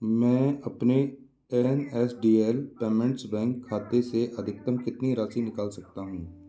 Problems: none marked